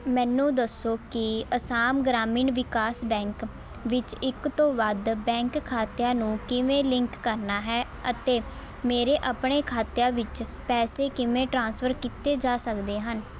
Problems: constant background noise, continuous background conversations